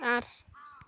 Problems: constant background noise